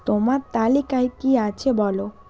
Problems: constant background noise